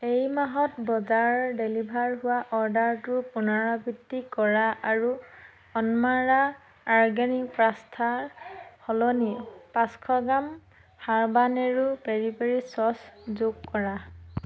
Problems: none marked